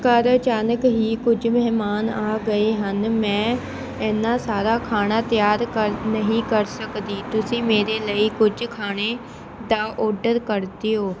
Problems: constant background noise, continuous background conversations